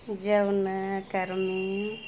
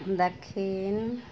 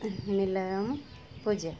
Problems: none marked